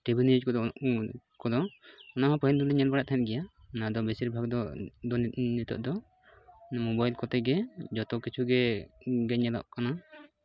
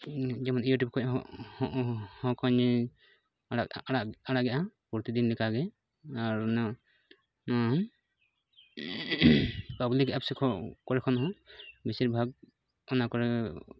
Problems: none marked